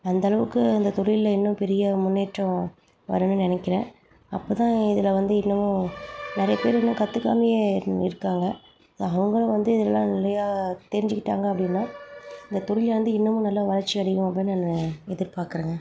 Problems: background sounds at intervals